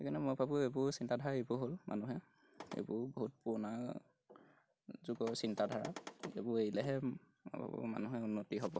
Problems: background sounds at intervals